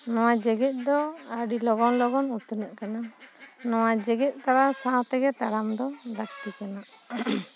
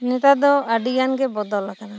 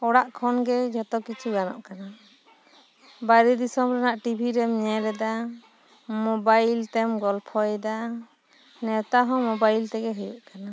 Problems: background sounds at intervals